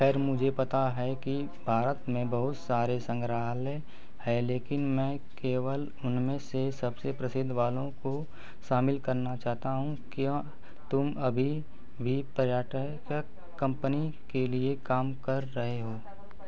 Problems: none marked